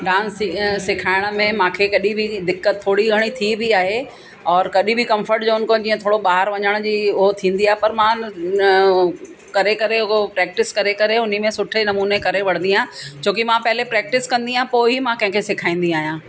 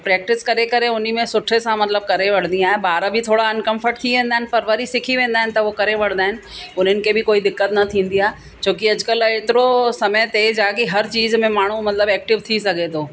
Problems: constant background noise, echo